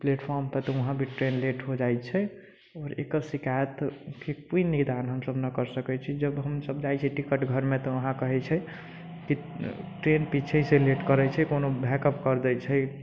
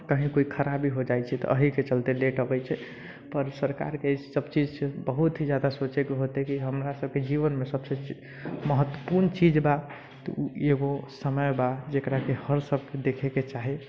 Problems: low volume